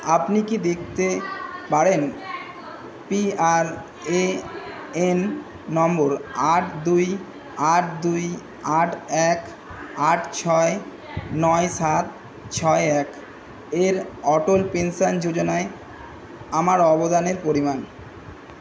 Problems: constant background noise